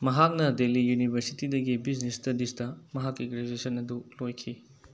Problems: background sounds at intervals